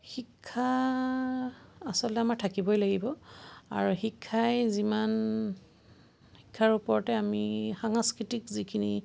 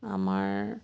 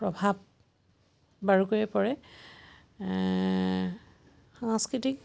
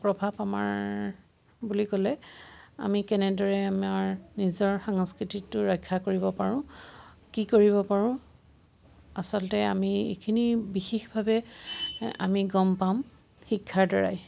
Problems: constant background noise, background conversations at intervals